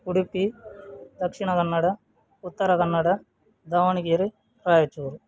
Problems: none marked